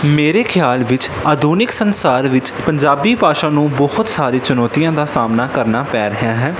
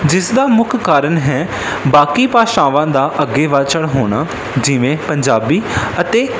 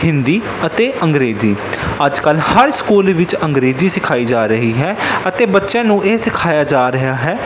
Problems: constant background noise